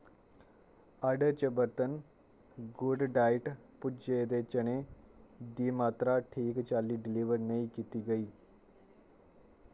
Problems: none marked